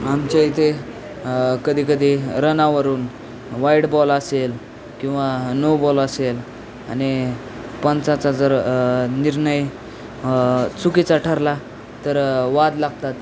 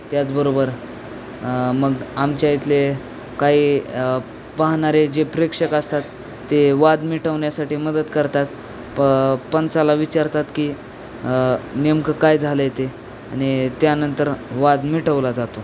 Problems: constant background noise, background conversations at intervals